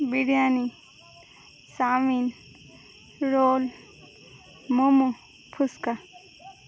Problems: background conversations at intervals